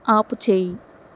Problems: constant background noise